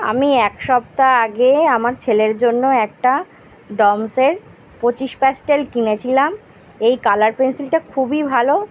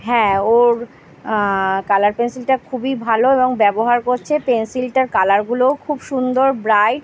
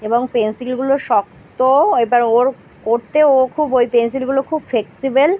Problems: background sounds at intervals